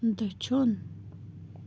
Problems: constant background noise, low volume